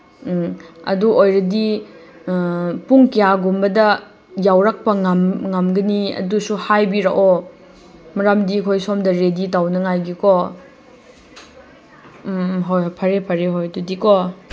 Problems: constant background noise